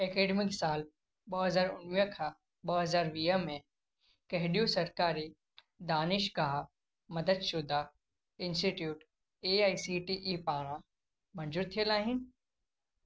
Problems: none marked